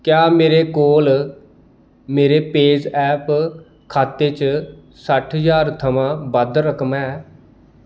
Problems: none marked